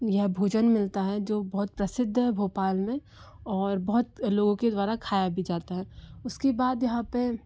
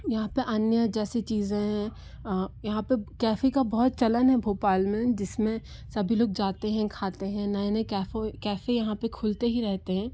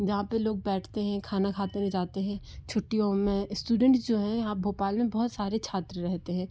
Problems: low volume